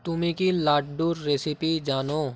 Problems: constant background noise